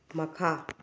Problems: low volume